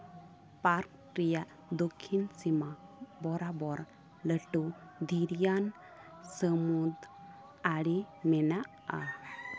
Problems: constant background noise, continuous background conversations